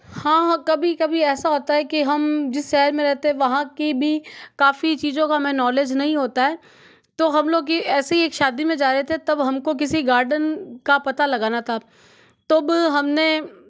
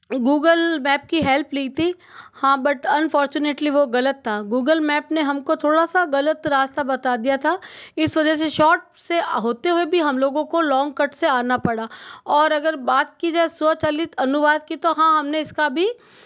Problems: background sounds at intervals